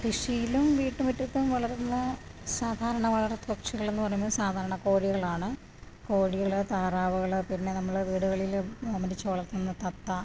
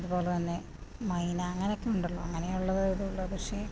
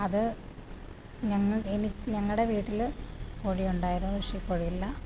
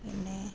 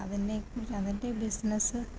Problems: low volume